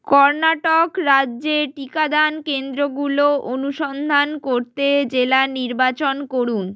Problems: none marked